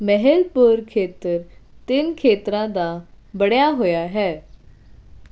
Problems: none marked